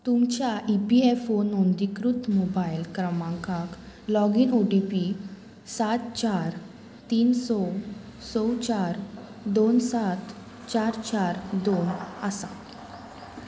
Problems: constant background noise